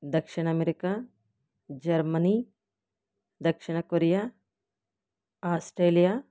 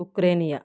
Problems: none marked